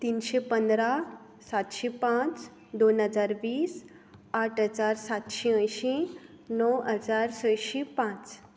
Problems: background sounds at intervals